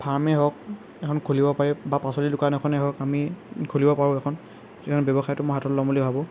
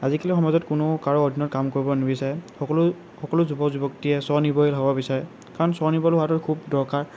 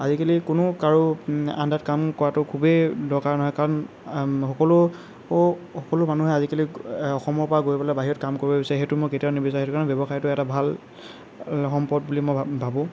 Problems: none marked